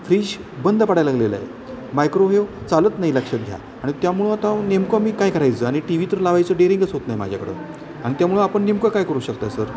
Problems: none marked